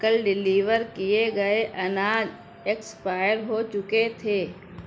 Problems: constant background noise